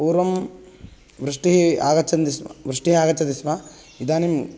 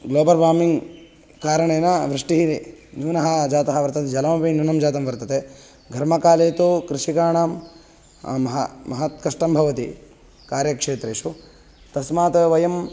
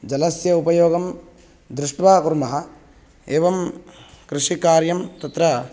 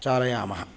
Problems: background sounds at intervals